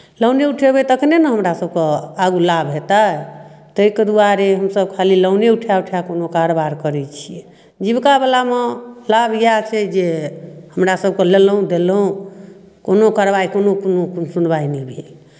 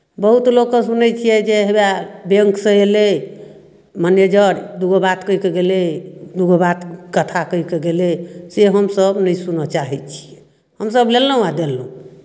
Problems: none marked